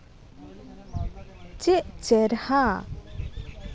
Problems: constant background noise